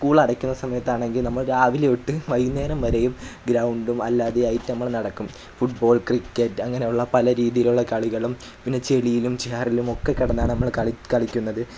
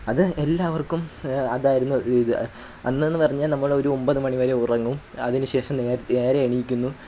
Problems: background sounds at intervals